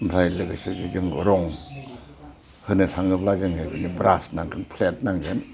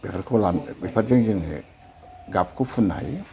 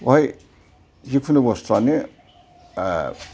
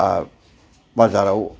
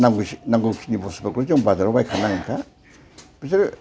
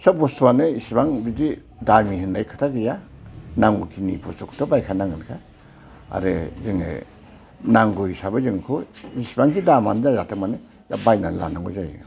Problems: constant background noise